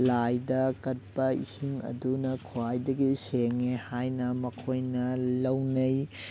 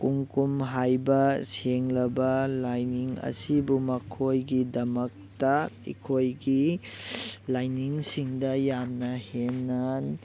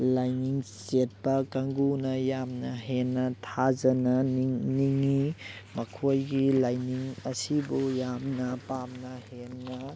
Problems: background sounds at intervals